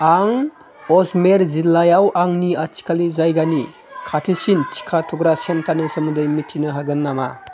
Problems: continuous background conversations